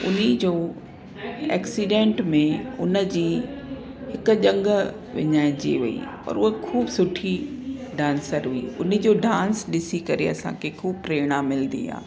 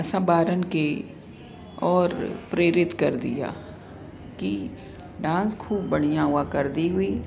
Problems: constant background noise, echo